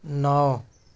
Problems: none marked